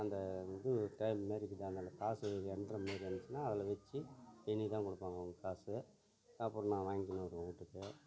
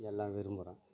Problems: continuous background conversations